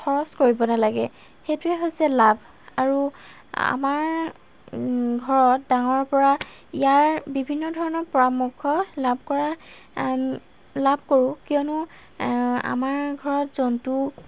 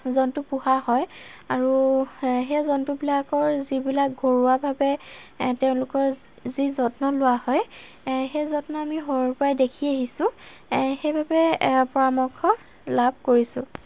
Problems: background sounds at intervals